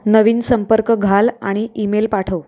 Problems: background sounds at intervals